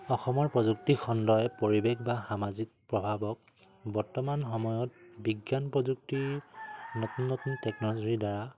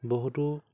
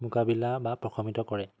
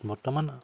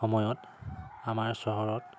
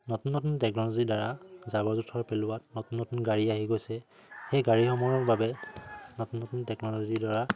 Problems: constant background noise